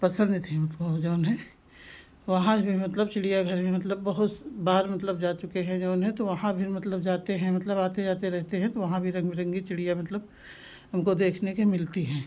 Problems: constant background noise